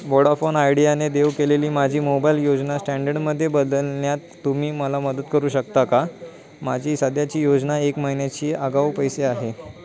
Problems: background conversations at intervals